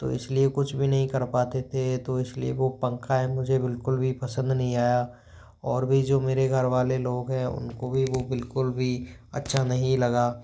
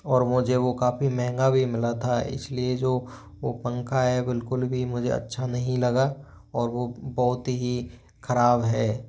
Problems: none marked